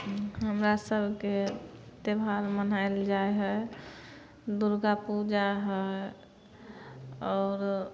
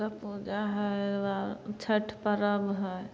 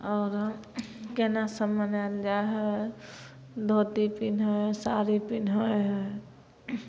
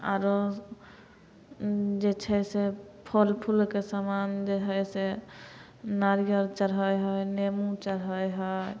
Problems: none marked